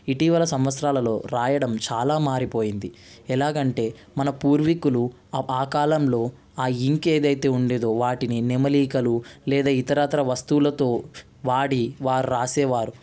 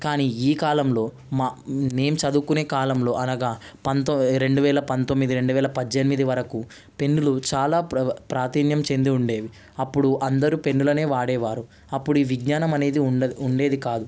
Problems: constant background noise